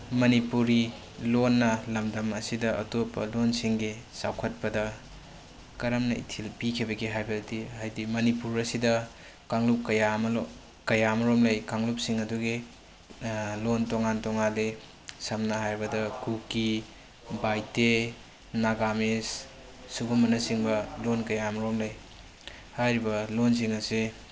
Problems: constant background noise